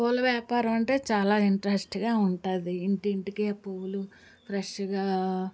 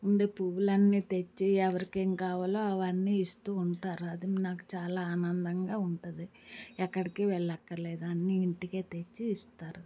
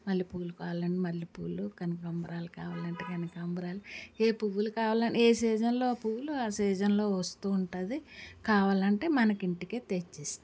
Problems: background sounds at intervals, background conversations at intervals